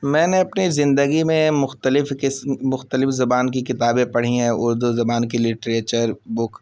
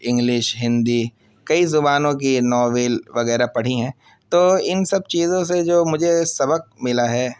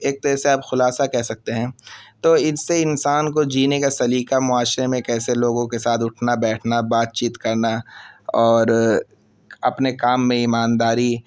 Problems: constant background noise